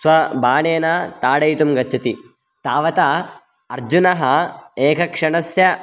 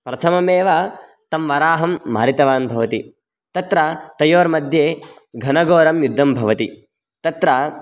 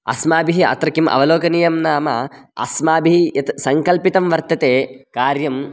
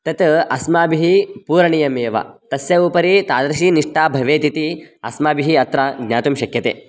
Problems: none marked